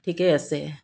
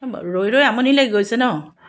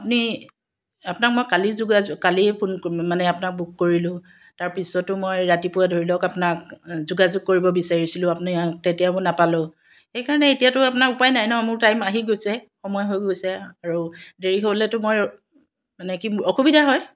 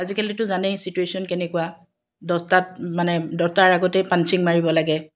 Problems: none marked